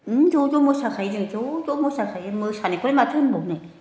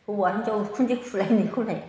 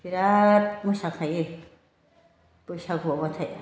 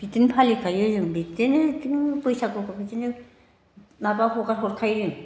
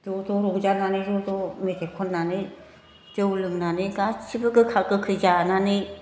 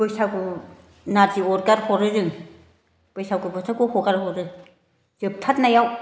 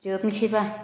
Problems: constant background noise